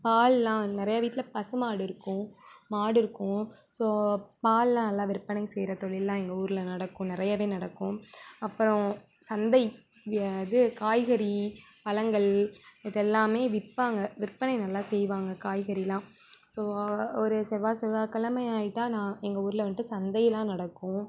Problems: background conversations at intervals